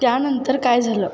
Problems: constant background noise